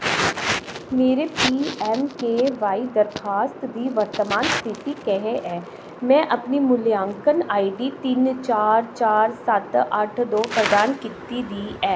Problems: background sounds at intervals, echo